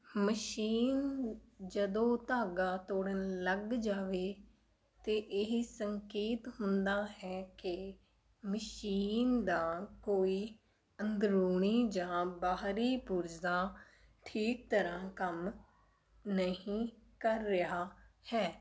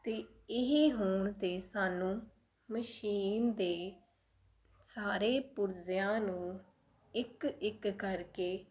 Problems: background sounds at intervals